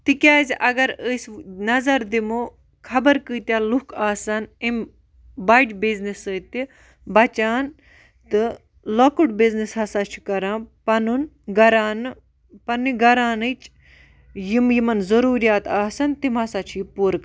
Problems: none marked